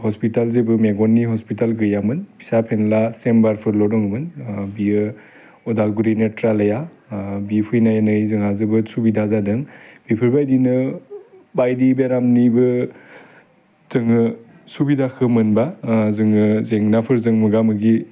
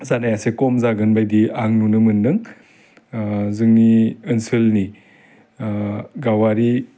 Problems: constant background noise